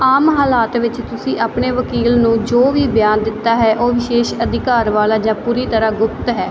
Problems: none marked